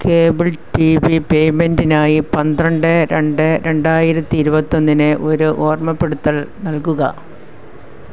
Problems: background sounds at intervals